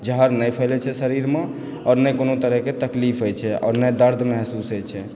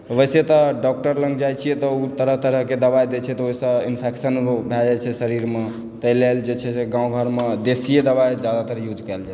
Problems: none marked